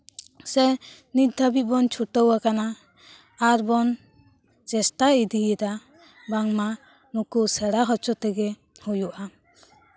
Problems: none marked